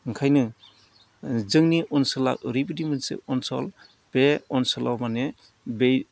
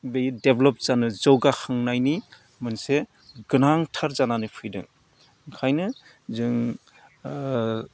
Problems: none marked